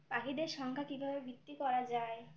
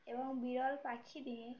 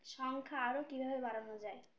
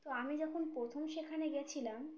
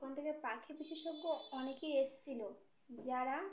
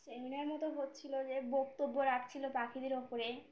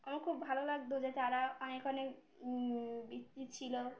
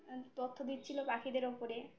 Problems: background sounds at intervals